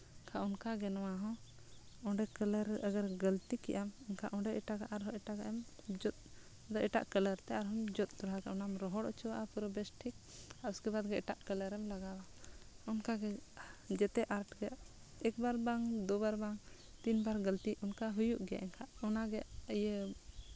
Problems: background sounds at intervals